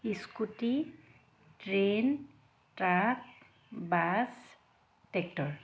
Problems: none marked